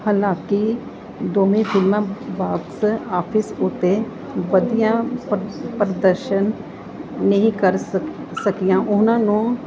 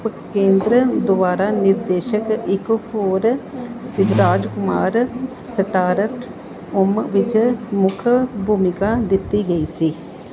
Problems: none marked